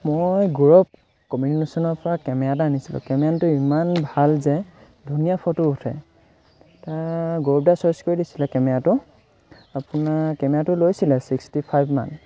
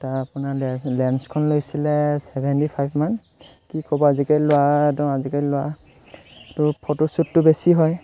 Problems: none marked